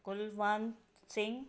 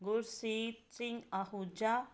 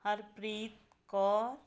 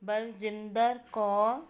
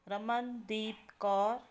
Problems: none marked